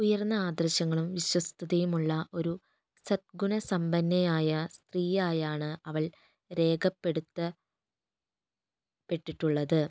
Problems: low volume